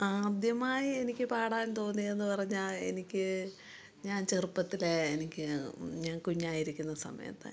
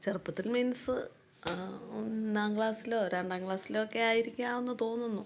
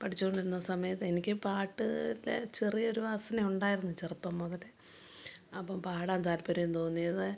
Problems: low volume